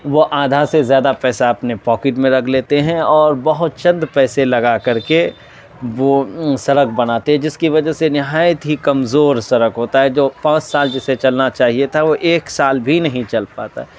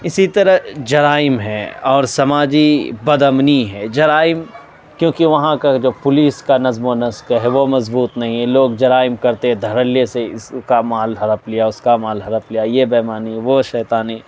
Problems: constant background noise